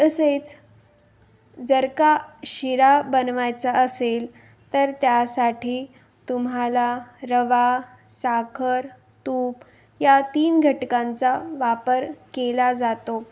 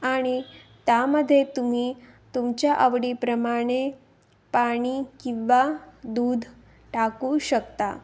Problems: constant background noise